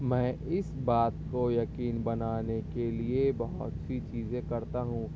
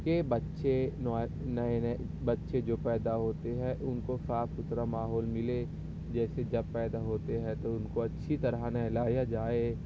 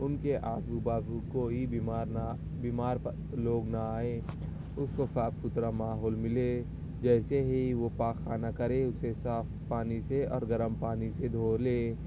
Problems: none marked